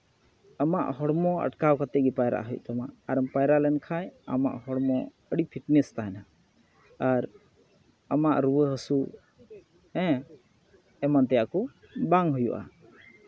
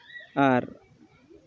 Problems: background sounds at intervals, background conversations at intervals